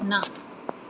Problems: none marked